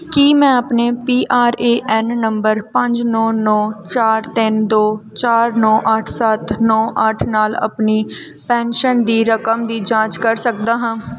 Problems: background sounds at intervals